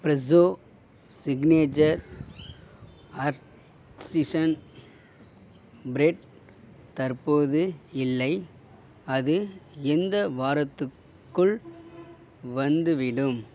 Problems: none marked